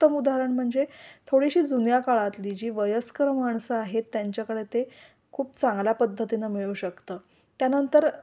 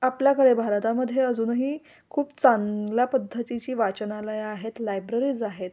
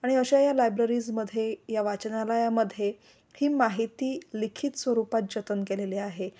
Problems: none marked